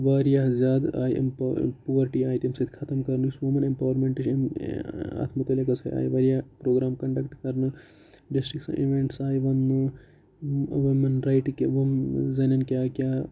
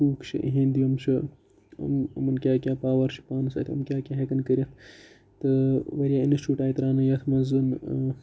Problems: low volume